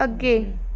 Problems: none marked